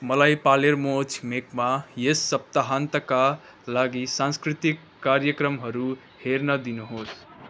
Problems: background sounds at intervals